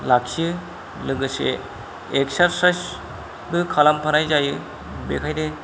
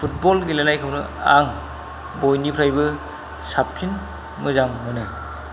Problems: none marked